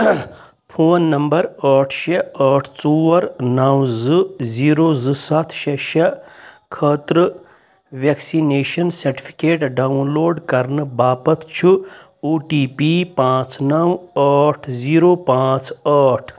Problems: constant background noise